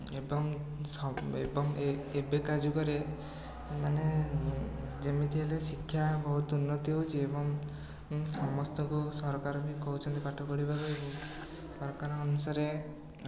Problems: none marked